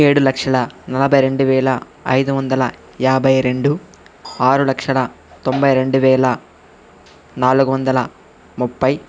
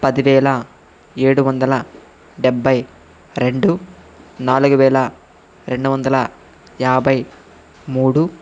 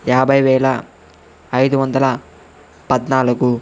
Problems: constant background noise, background conversations at intervals